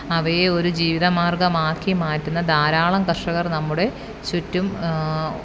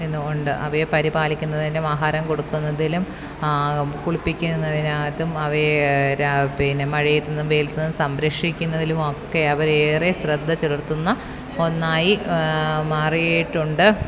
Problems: background sounds at intervals, background conversations at intervals